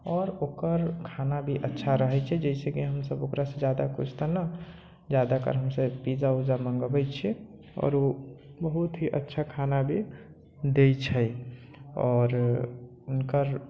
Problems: low volume